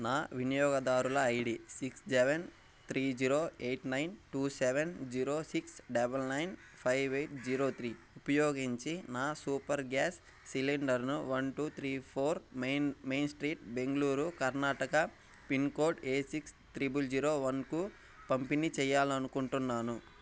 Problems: background sounds at intervals, low volume